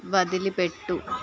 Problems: constant background noise